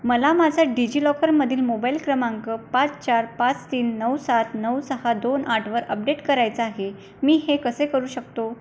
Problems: constant background noise